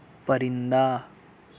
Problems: constant background noise